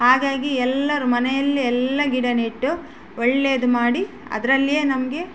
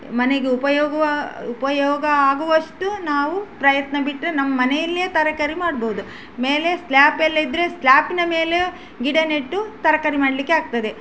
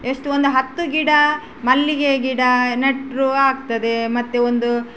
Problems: none marked